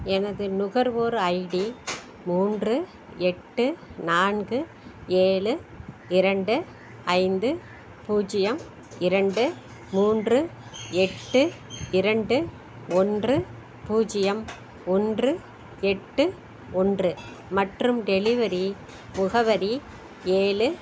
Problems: background sounds at intervals